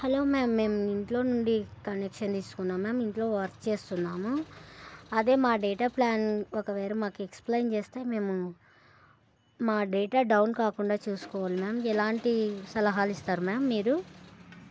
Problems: none marked